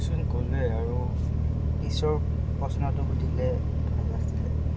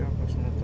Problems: background sounds at intervals